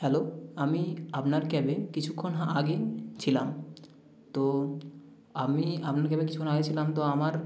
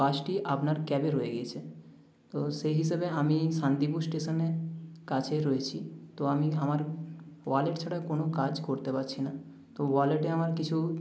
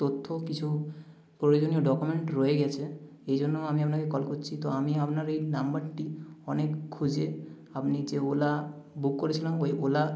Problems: constant background noise